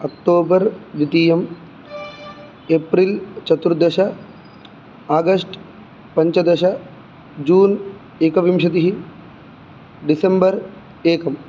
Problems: background sounds at intervals